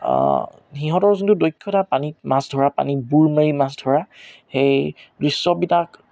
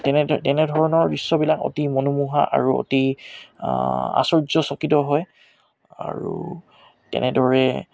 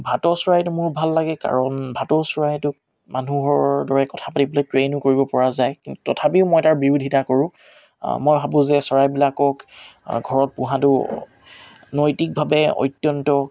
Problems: none marked